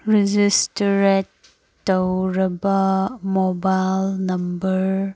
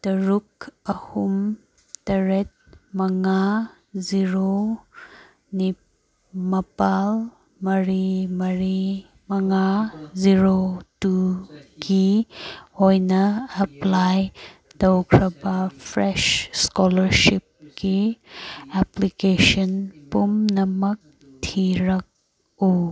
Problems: background conversations at intervals